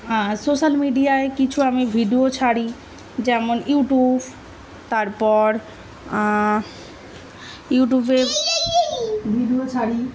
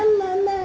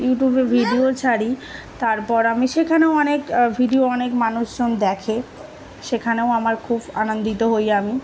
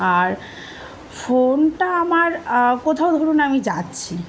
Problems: continuous background conversations